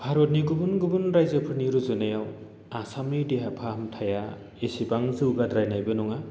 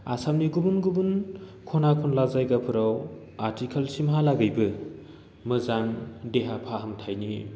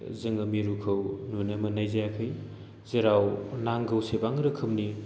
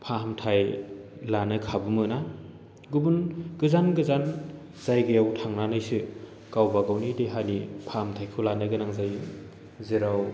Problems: low volume